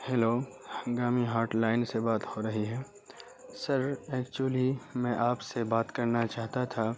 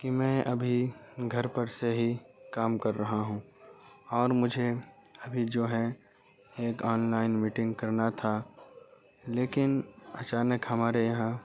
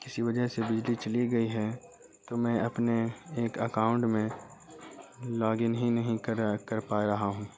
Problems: constant background noise, low volume